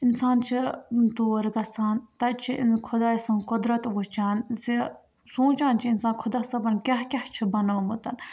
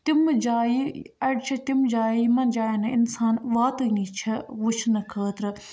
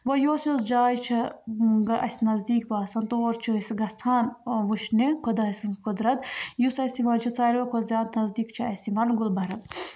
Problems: background sounds at intervals